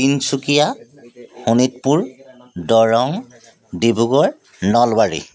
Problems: constant background noise, background conversations at intervals